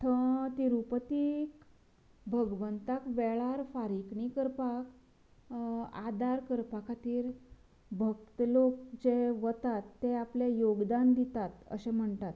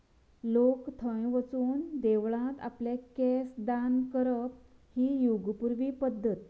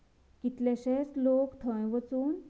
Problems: none marked